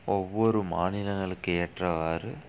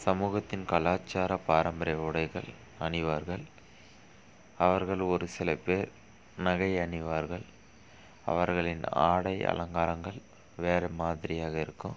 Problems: none marked